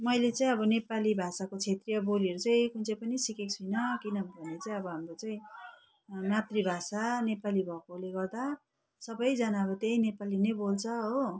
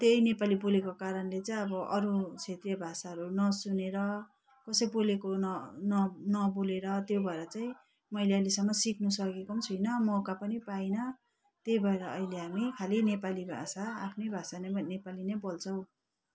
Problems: background sounds at intervals